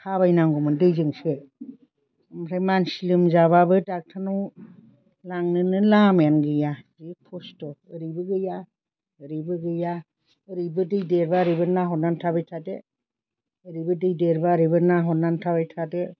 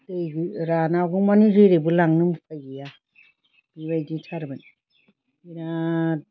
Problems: constant background noise